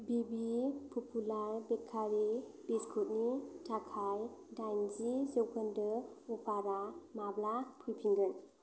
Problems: constant background noise